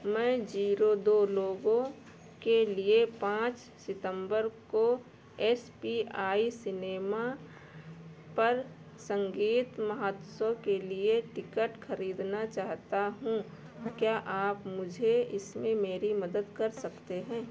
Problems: none marked